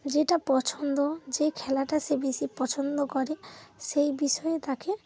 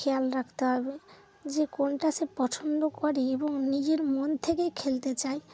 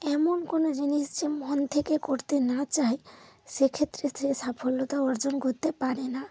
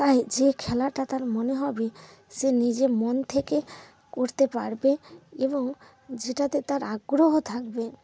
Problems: none marked